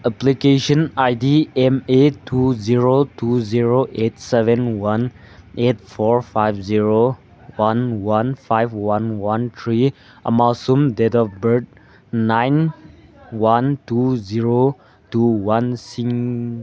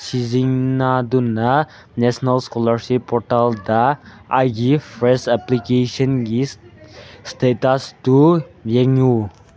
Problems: background sounds at intervals, background conversations at intervals